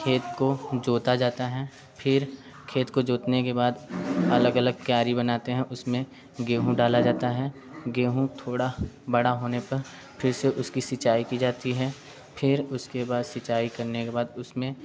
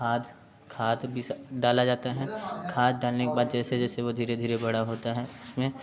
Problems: none marked